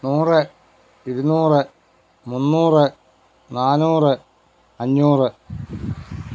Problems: background sounds at intervals